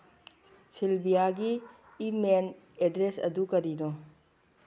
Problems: background sounds at intervals